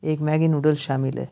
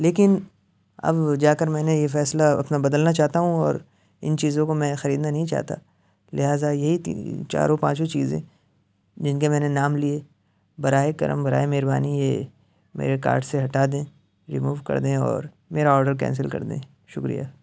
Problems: none marked